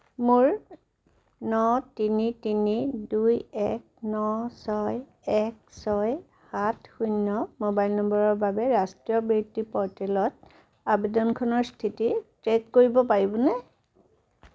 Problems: none marked